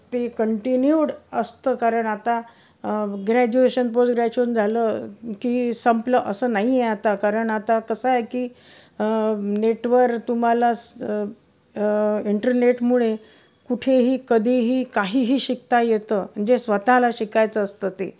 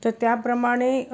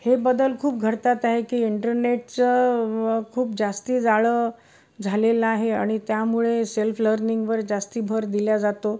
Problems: none marked